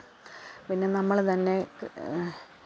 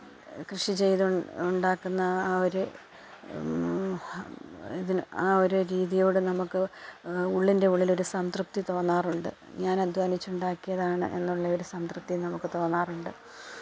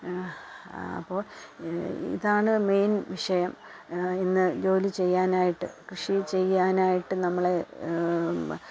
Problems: background sounds at intervals, low volume